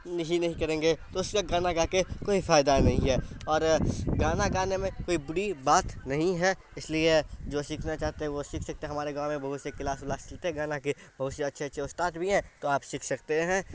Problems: constant background noise